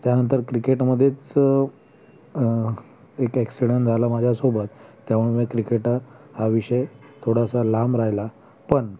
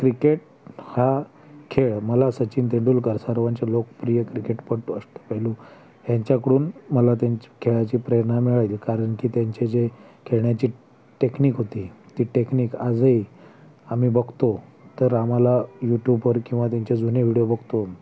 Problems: constant background noise